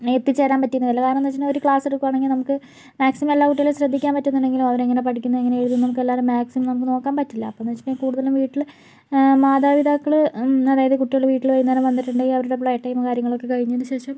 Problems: low volume